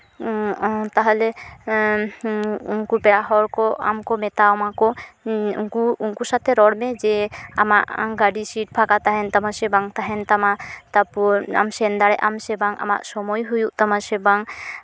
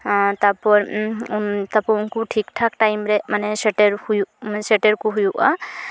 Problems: constant background noise